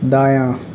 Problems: background sounds at intervals